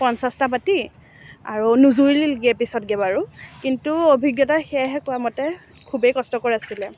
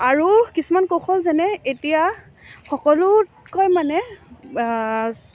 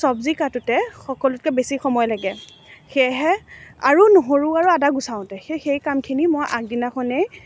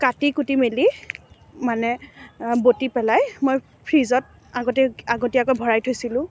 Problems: none marked